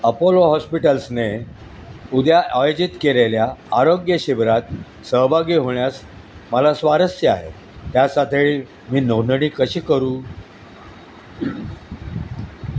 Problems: constant background noise, background conversations at intervals